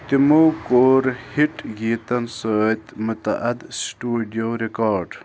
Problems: constant background noise, continuous background conversations